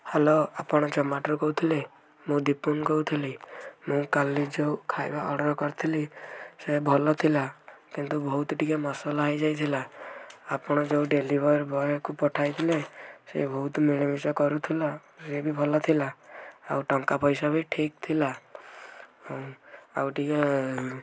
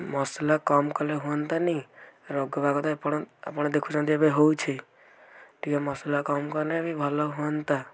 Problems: background conversations at intervals